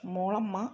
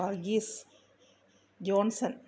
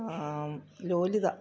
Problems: low volume